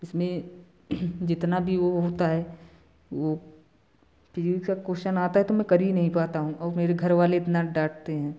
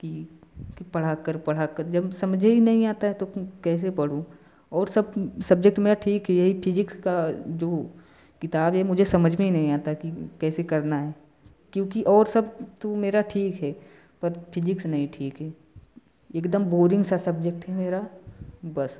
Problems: background sounds at intervals